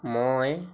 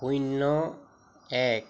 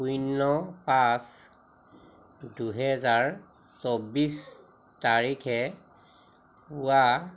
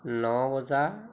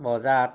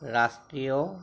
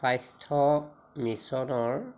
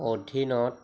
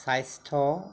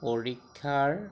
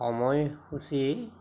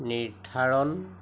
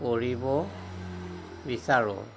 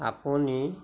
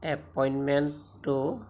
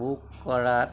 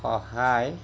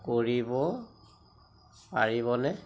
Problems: none marked